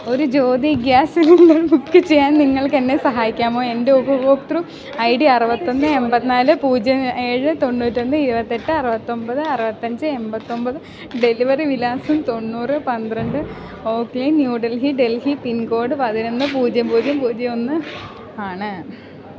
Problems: none marked